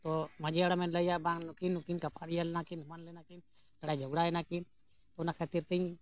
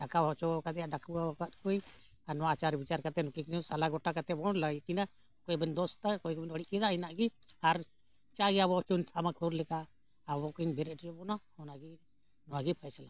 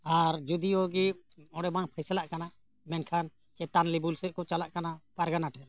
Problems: background sounds at intervals